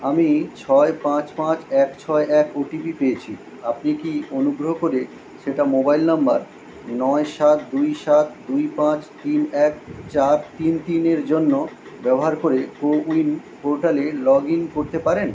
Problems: constant background noise